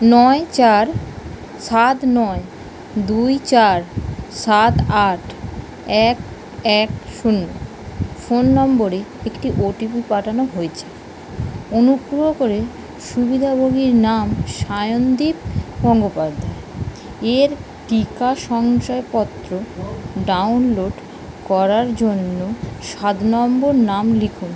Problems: constant background noise